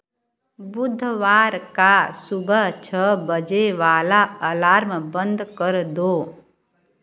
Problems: none marked